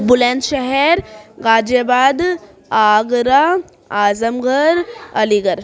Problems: background sounds at intervals, continuous background conversations